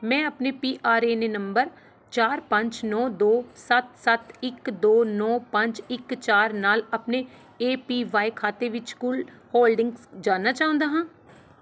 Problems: background sounds at intervals